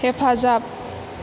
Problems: constant background noise